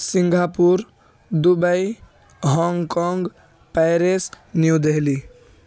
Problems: continuous background conversations